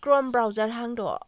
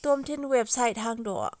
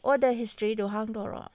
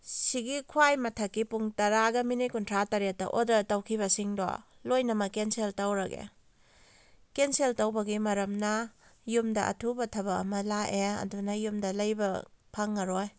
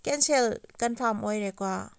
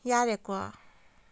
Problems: none marked